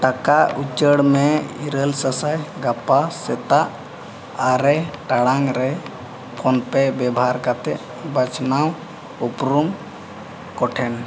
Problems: constant background noise